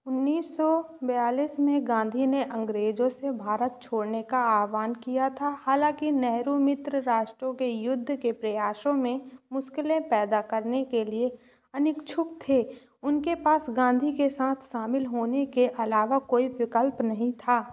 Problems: constant background noise